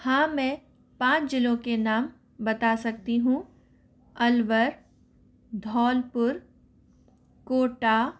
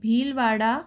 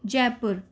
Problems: none marked